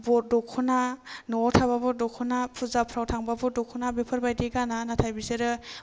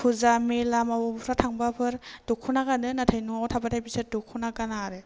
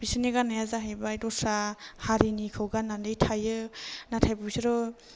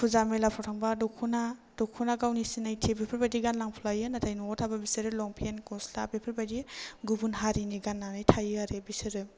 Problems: none marked